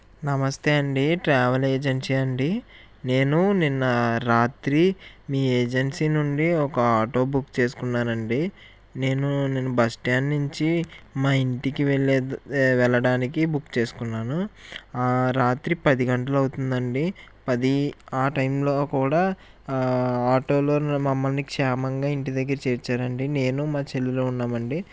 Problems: constant background noise